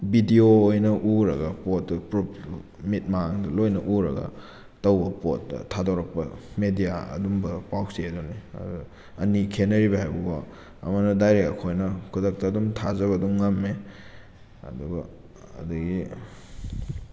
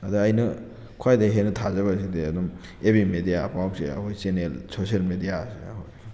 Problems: none marked